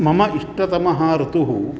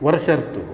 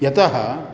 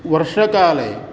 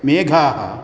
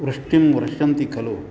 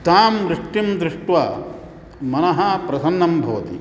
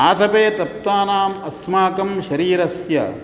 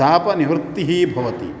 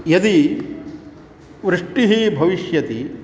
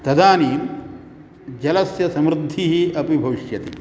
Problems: background sounds at intervals